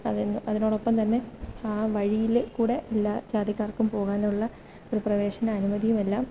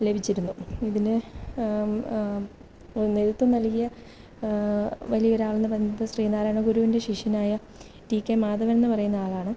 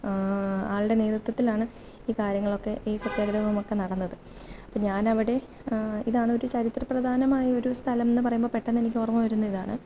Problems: background sounds at intervals